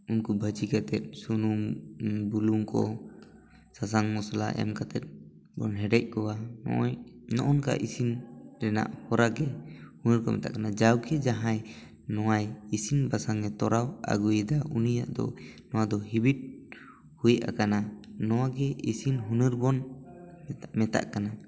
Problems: background sounds at intervals, background conversations at intervals